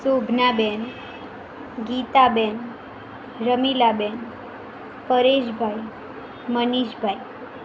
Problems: constant background noise